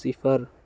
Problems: none marked